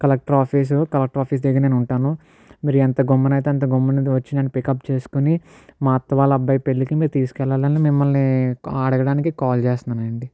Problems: none marked